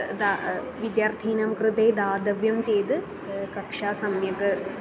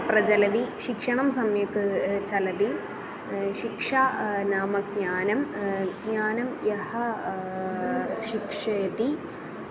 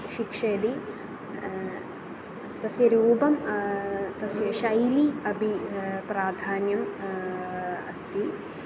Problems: constant background noise, continuous background conversations